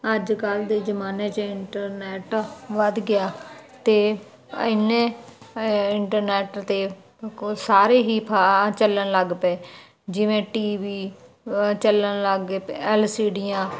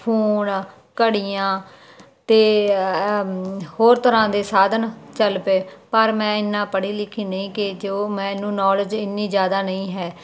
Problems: background conversations at intervals